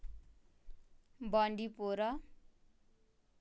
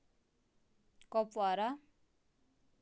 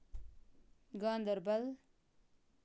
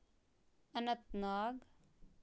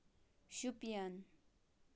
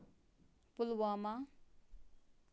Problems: low volume